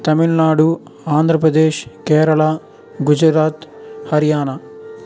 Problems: constant background noise